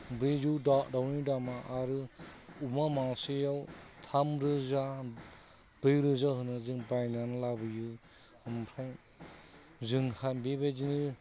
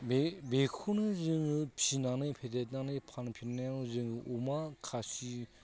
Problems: constant background noise